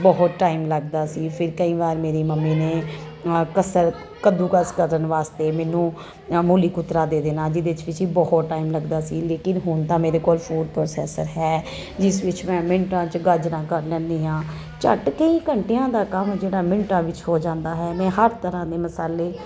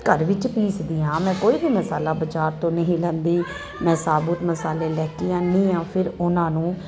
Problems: none marked